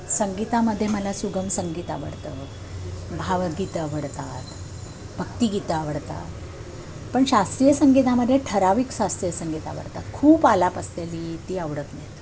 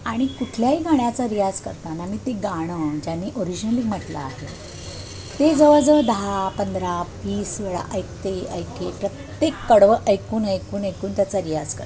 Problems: constant background noise, continuous background conversations